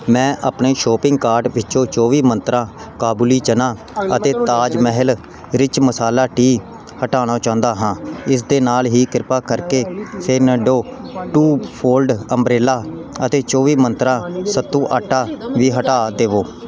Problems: background sounds at intervals, background conversations at intervals